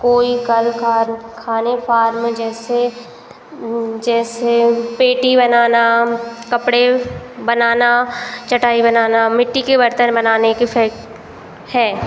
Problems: constant background noise